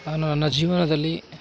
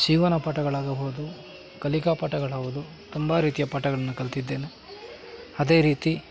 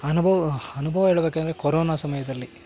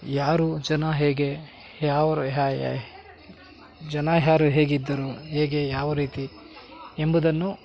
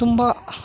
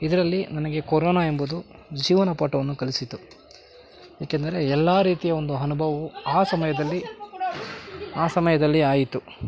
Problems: constant background noise